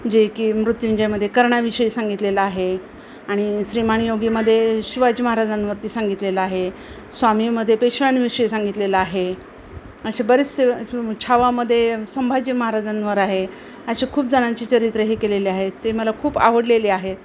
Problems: constant background noise, background conversations at intervals